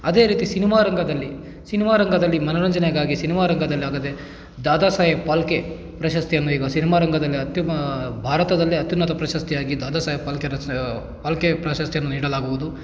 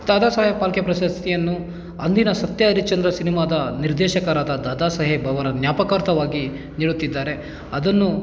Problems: none marked